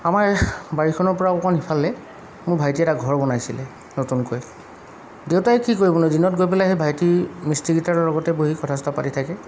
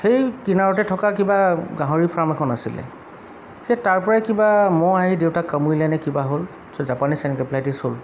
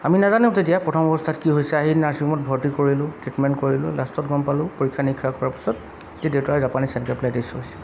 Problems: background sounds at intervals